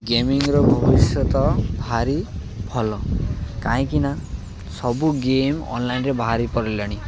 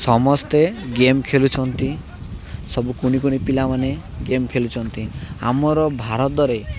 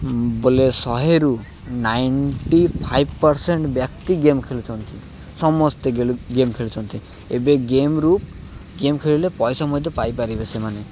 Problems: none marked